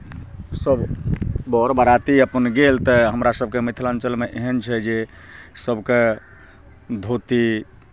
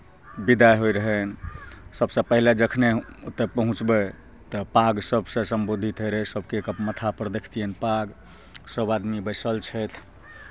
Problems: none marked